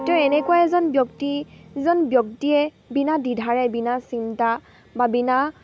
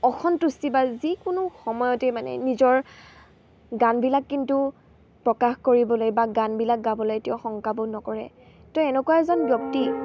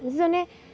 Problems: constant background noise, background conversations at intervals